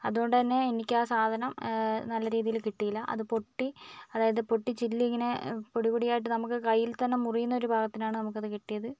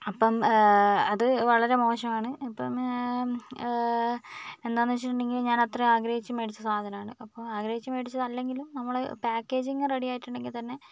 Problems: none marked